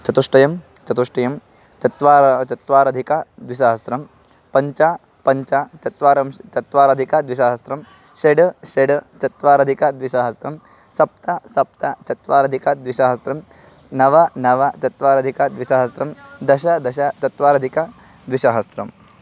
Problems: none marked